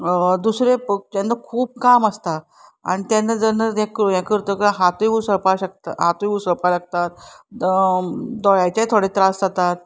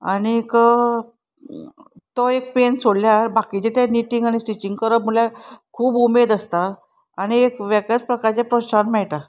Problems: none marked